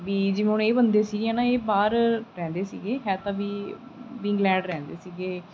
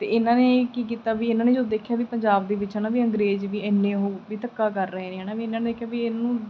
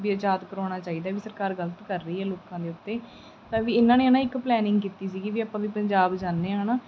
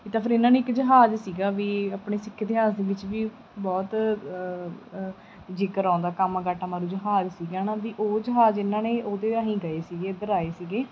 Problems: none marked